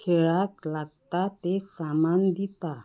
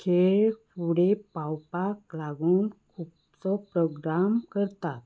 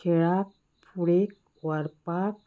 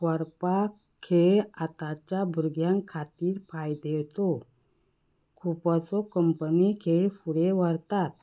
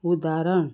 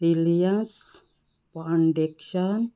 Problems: background sounds at intervals